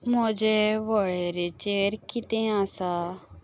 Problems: background sounds at intervals